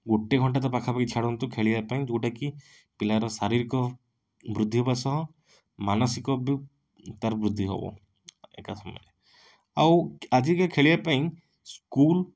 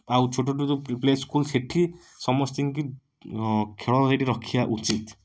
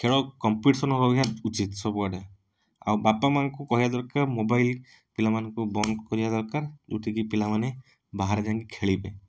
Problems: none marked